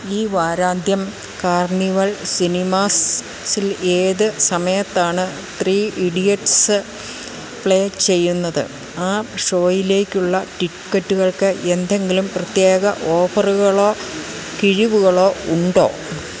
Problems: constant background noise